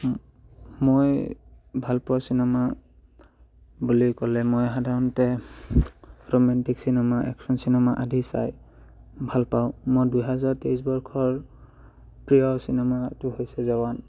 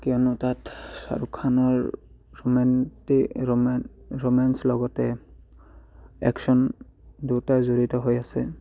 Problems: background sounds at intervals